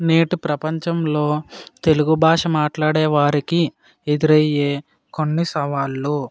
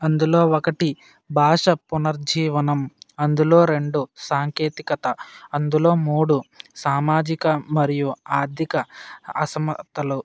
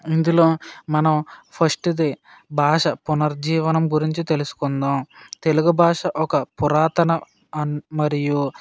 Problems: none marked